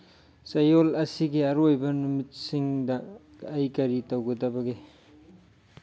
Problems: low volume